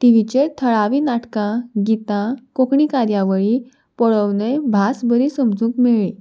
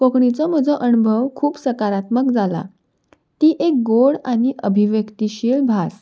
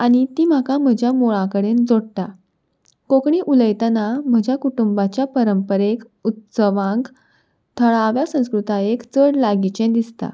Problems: none marked